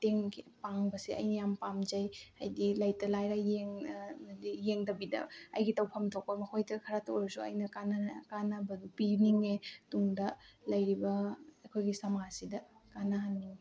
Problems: background conversations at intervals